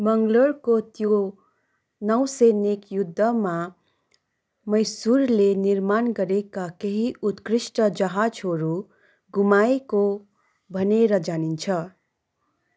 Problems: constant background noise